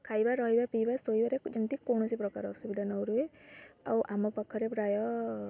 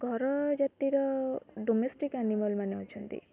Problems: constant background noise